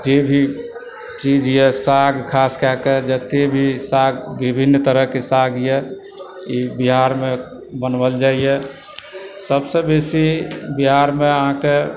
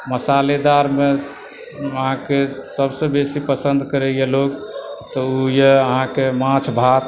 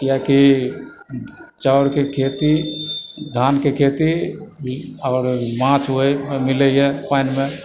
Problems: constant background noise, background conversations at intervals